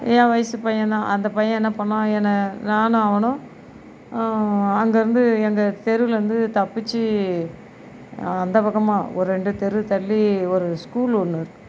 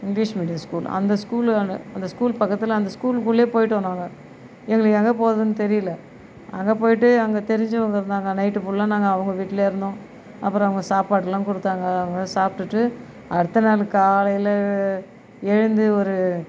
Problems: background sounds at intervals